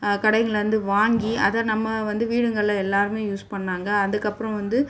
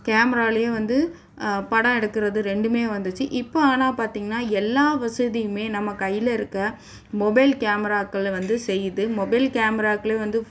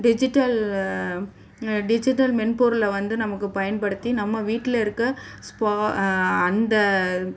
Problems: background sounds at intervals